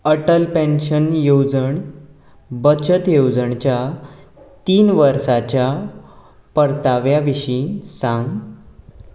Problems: background sounds at intervals